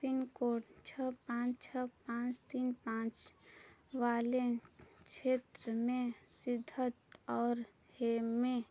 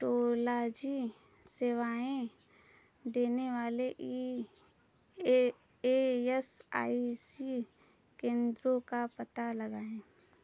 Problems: none marked